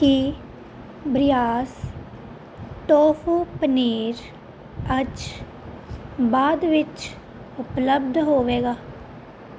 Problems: constant background noise